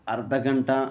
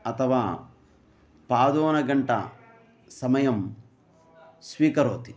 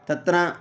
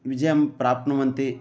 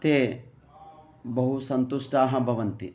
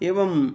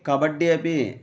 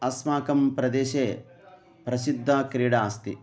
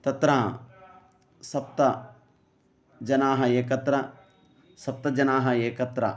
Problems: background sounds at intervals